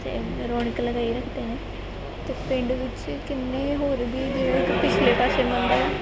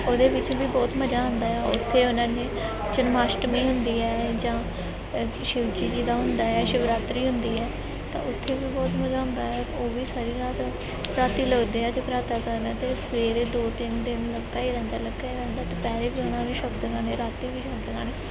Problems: constant background noise, background conversations at intervals